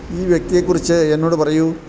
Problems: constant background noise